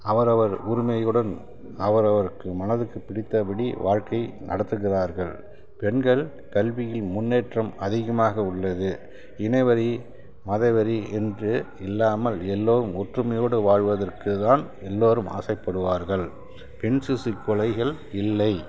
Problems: constant background noise